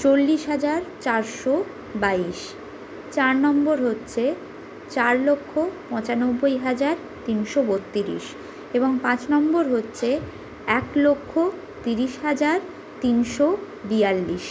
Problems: background sounds at intervals